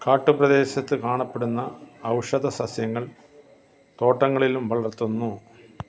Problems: none marked